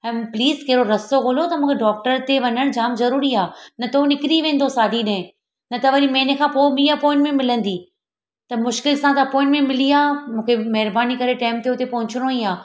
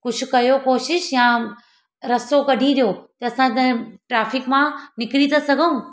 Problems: none marked